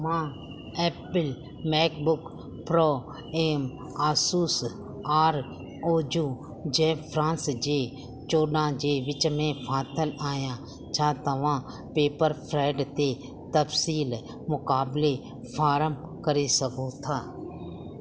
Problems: constant background noise